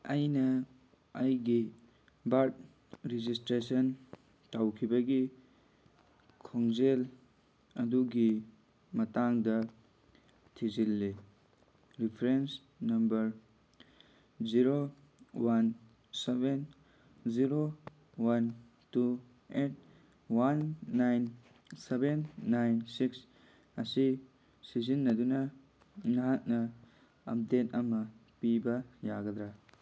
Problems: background sounds at intervals